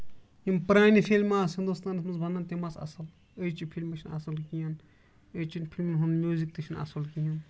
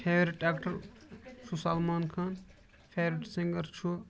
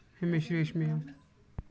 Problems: background sounds at intervals